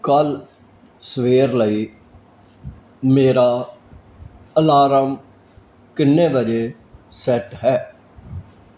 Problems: none marked